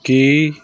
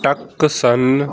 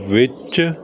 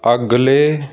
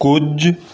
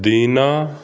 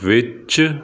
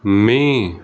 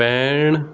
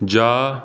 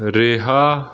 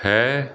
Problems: background sounds at intervals